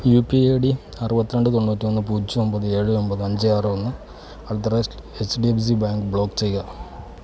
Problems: background sounds at intervals